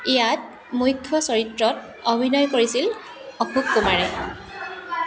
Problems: continuous background conversations